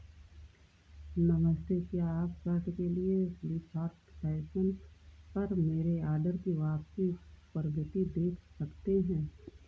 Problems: constant background noise